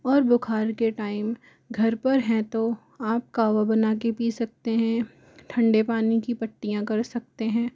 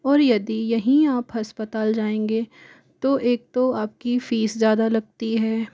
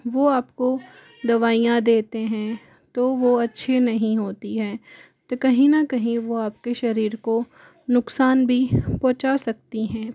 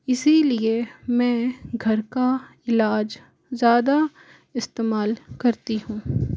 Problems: none marked